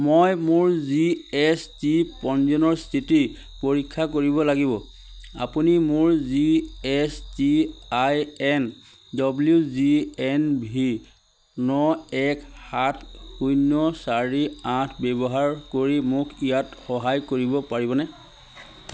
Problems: constant background noise